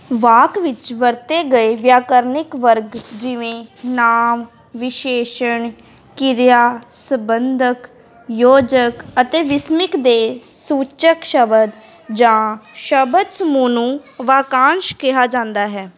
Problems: background sounds at intervals, continuous background conversations